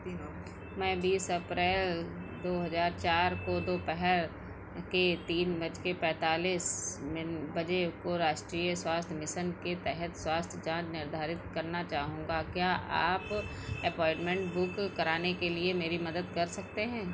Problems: constant background noise